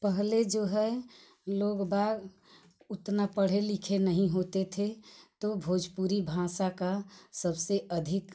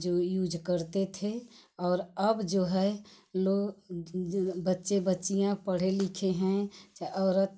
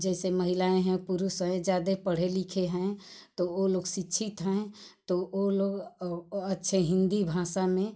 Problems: constant background noise